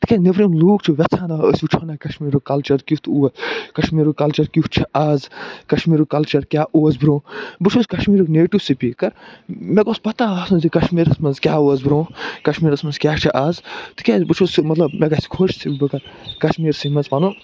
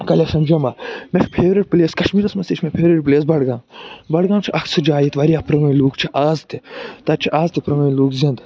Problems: background sounds at intervals